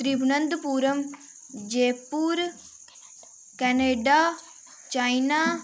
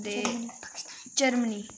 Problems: constant background noise, background conversations at intervals